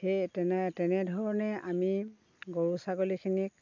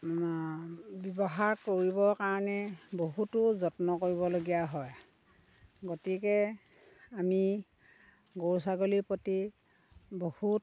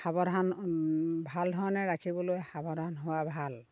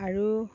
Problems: none marked